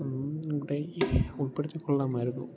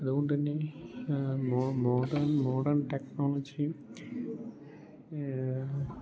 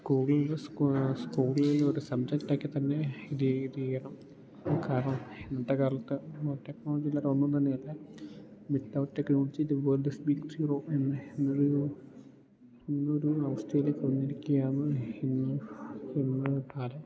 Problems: low volume